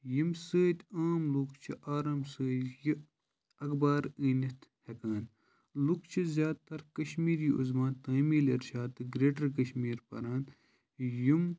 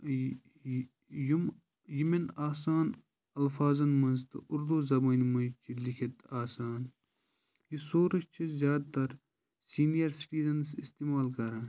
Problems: constant background noise, low volume